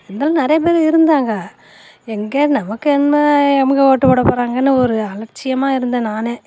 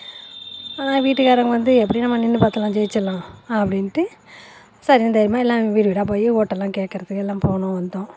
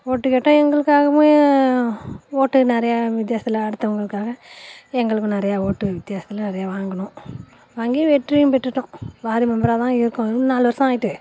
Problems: constant background noise